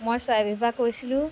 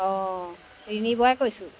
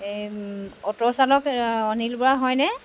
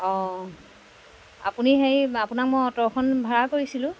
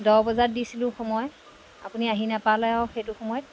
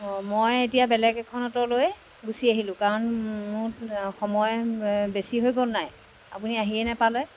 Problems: background sounds at intervals